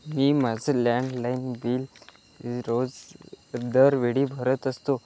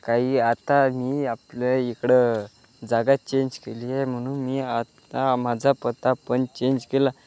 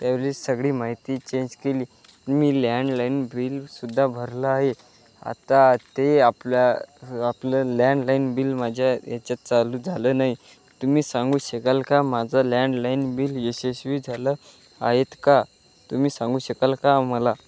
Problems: background sounds at intervals